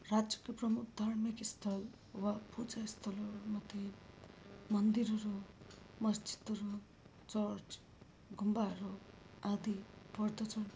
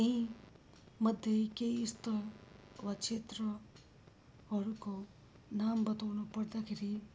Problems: background sounds at intervals